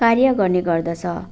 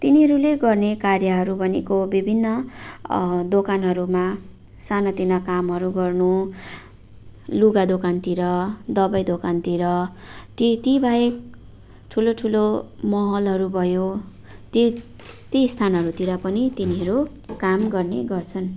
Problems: none marked